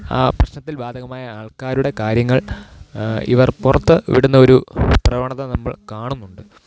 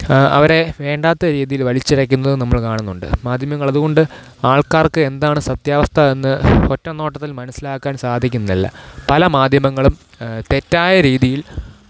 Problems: none marked